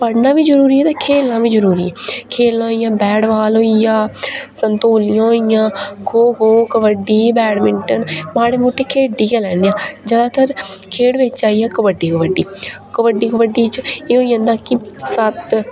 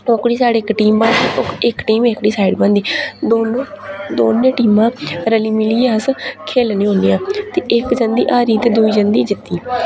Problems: none marked